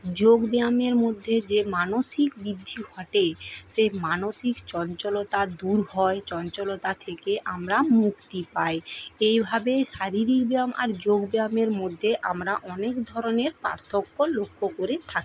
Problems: constant background noise